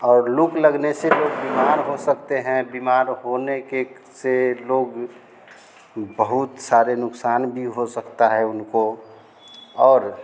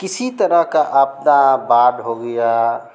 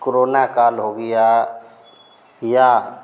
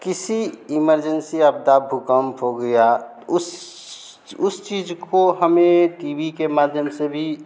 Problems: none marked